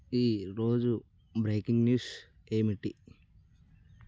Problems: none marked